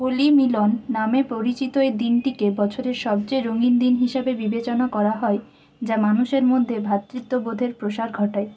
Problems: constant background noise